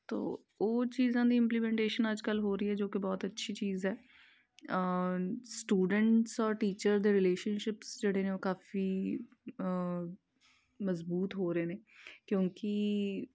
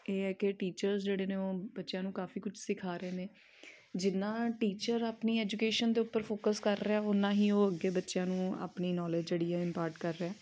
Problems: none marked